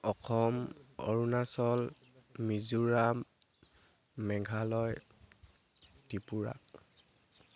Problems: constant background noise